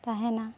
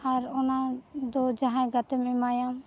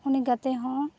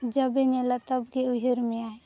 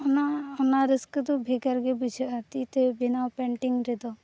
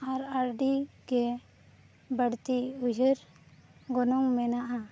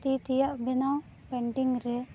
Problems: background sounds at intervals